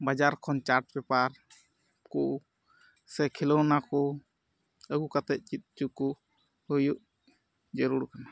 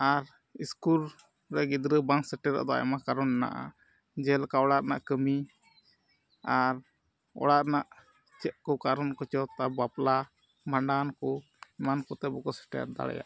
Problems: background sounds at intervals, low volume